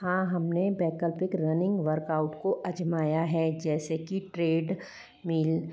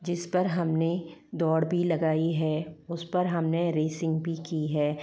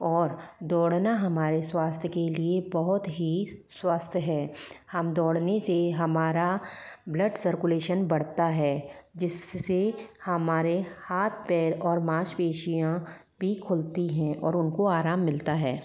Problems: none marked